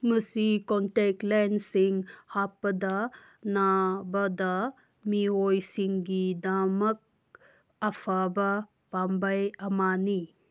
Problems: none marked